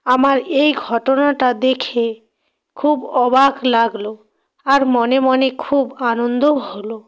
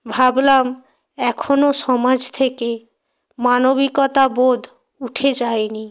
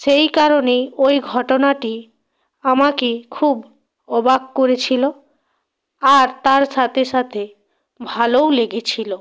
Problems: none marked